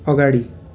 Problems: constant background noise